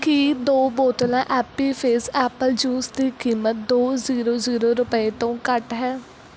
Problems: none marked